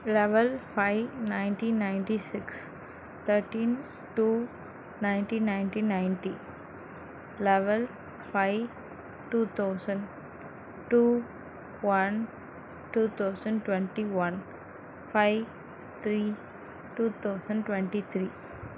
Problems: constant background noise